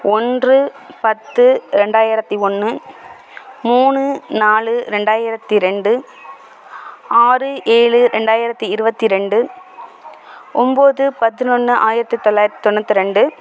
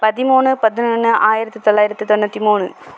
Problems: constant background noise